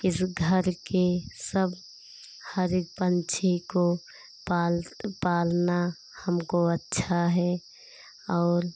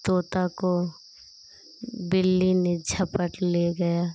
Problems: constant background noise